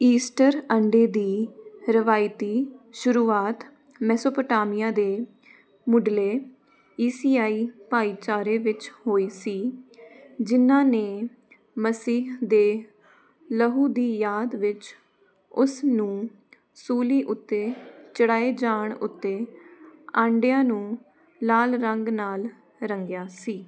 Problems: constant background noise